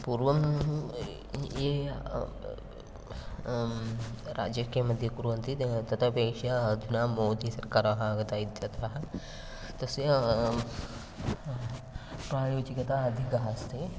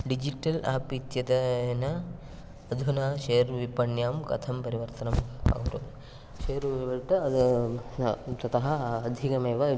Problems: constant background noise